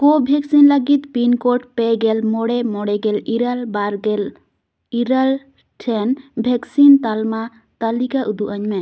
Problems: none marked